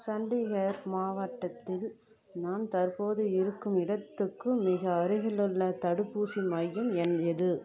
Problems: constant background noise